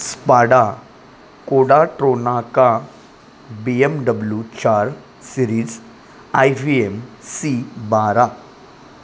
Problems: constant background noise